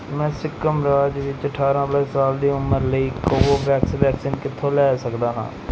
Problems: background sounds at intervals